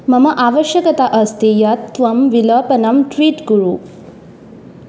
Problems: none marked